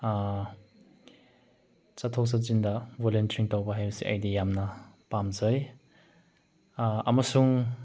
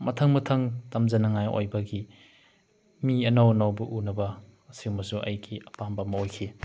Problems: background sounds at intervals